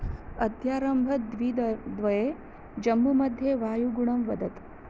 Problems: low volume